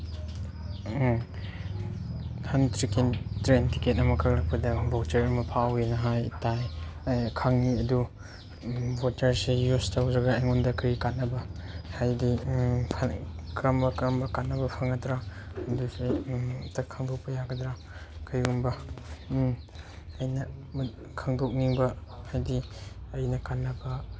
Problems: background sounds at intervals, background conversations at intervals